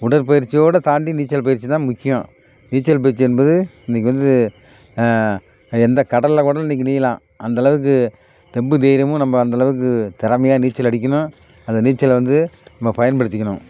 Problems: background sounds at intervals